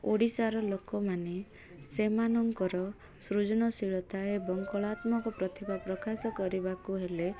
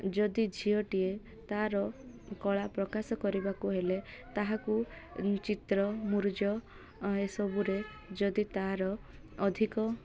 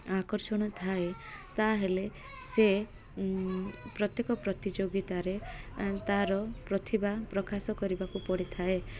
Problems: none marked